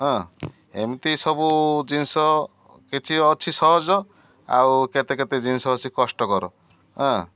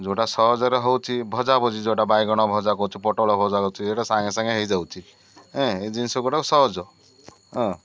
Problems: none marked